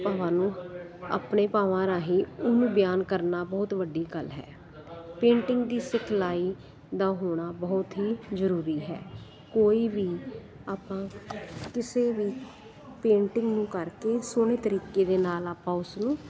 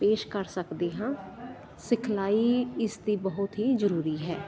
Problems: constant background noise, continuous background conversations